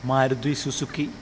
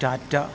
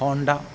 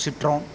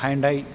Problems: none marked